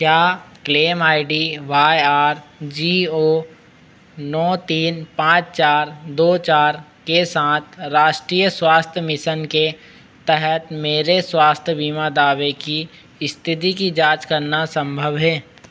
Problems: constant background noise